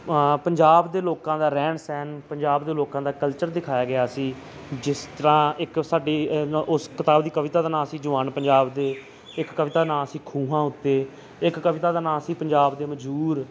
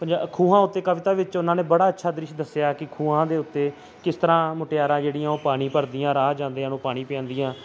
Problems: none marked